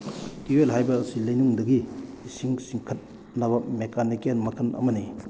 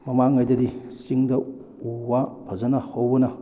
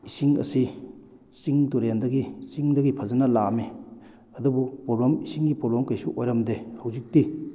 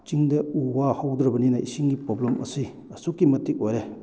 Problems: none marked